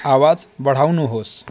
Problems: none marked